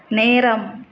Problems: none marked